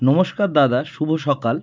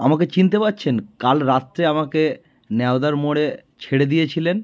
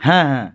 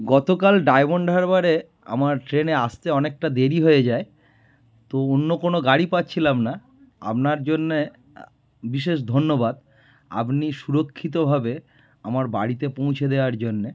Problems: background sounds at intervals